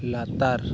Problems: constant background noise